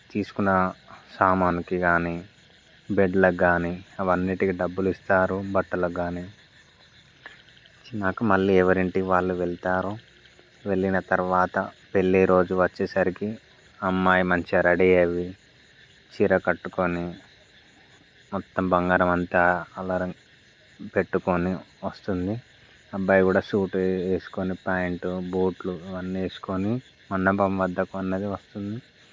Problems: background sounds at intervals